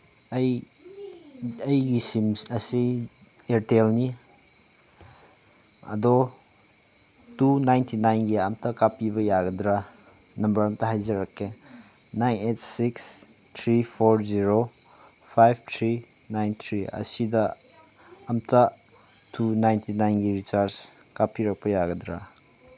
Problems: background sounds at intervals